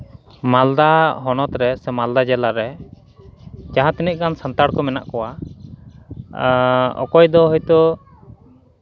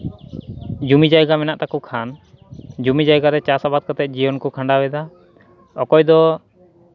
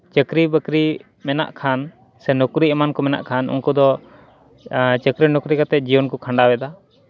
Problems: background sounds at intervals, background conversations at intervals